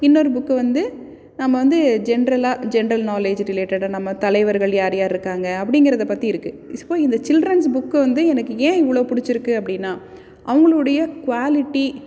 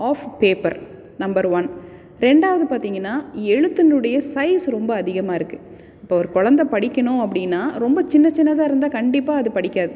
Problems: none marked